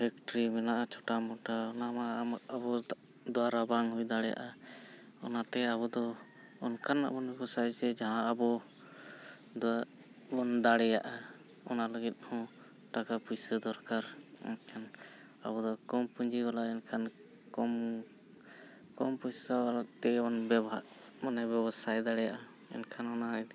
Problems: background sounds at intervals, background conversations at intervals